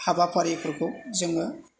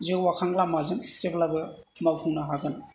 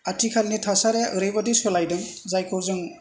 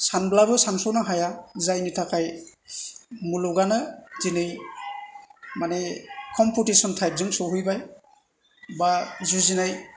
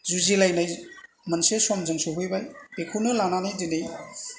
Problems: none marked